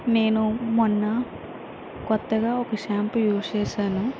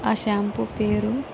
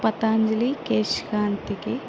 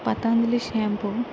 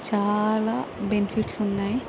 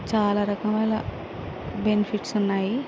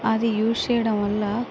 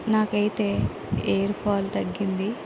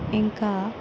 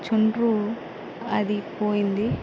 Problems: constant background noise